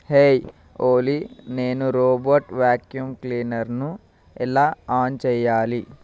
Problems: constant background noise